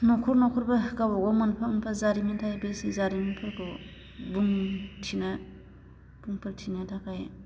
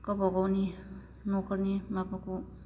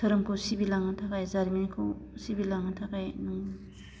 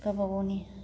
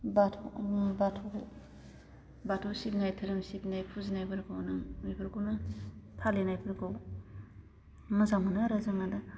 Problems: none marked